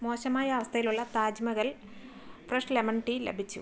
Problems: background sounds at intervals, low volume